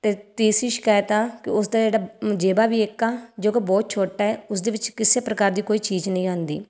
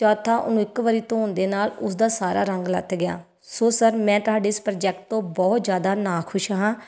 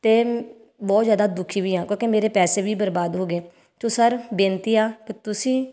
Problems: none marked